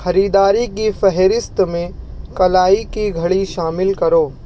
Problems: none marked